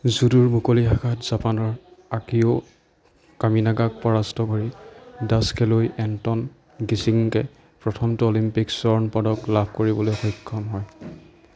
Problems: background sounds at intervals